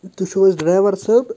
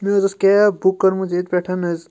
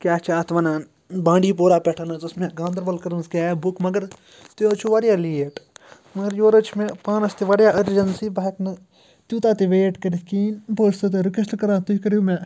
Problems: background sounds at intervals